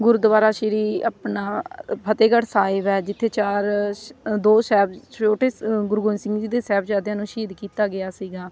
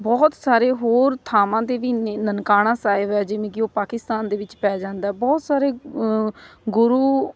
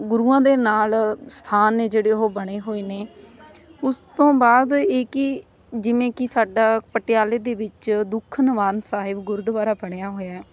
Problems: constant background noise, background conversations at intervals